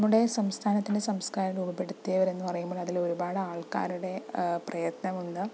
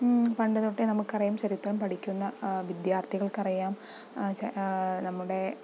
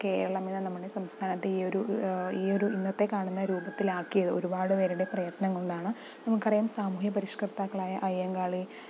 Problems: none marked